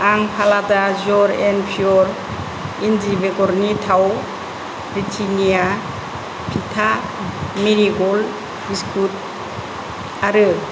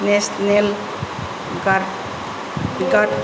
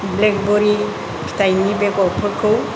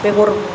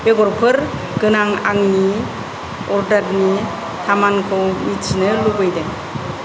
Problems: none marked